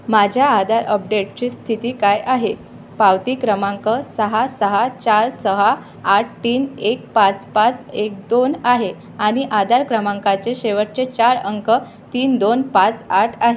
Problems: constant background noise